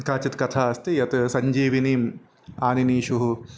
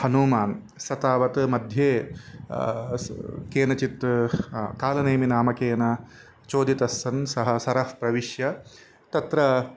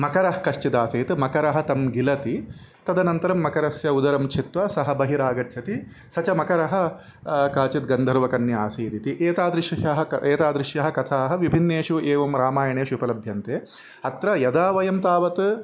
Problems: background sounds at intervals